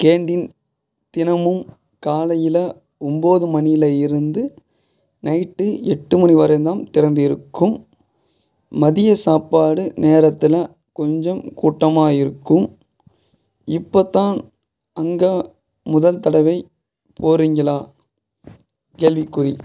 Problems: background sounds at intervals